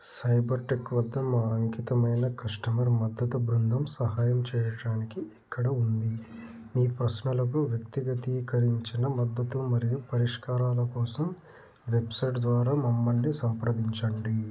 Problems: constant background noise